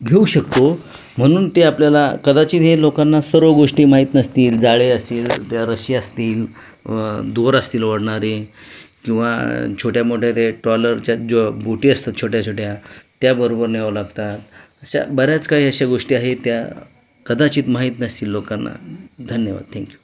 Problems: none marked